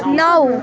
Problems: constant background noise